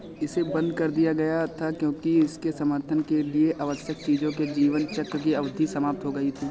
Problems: none marked